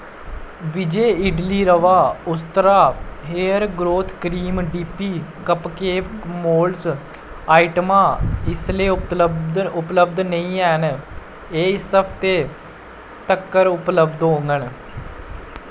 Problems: none marked